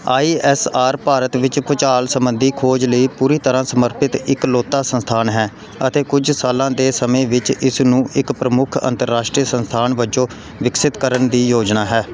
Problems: background conversations at intervals